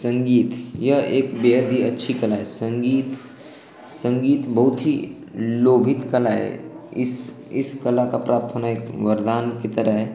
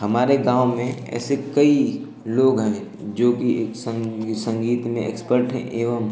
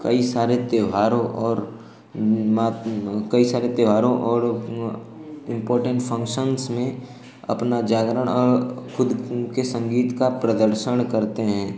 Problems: constant background noise